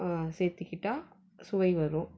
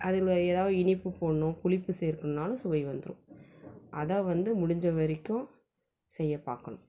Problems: none marked